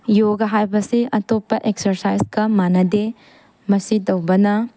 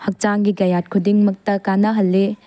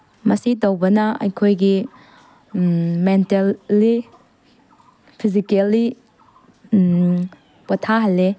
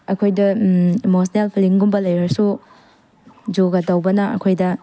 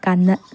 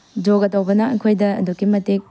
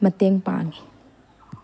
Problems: none marked